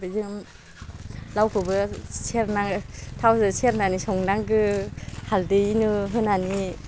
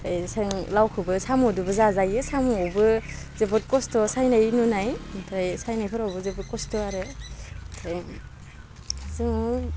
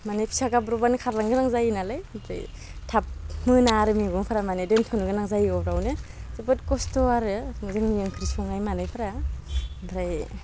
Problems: low volume